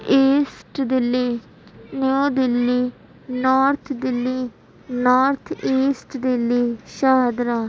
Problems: constant background noise, background conversations at intervals